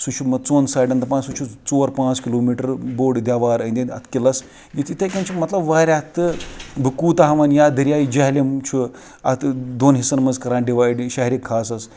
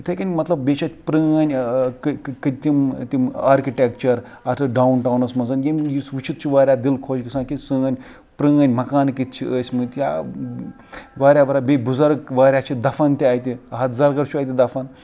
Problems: background sounds at intervals, background conversations at intervals